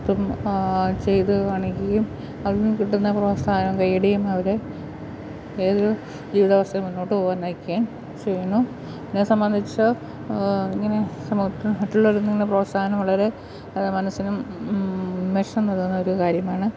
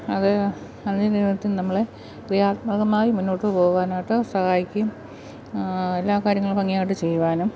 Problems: constant background noise